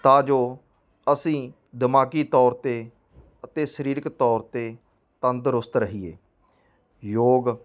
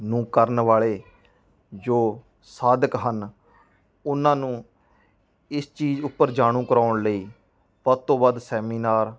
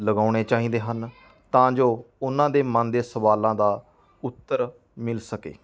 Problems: background conversations at intervals